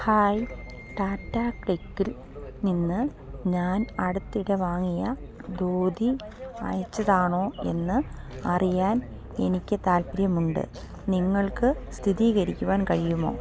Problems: none marked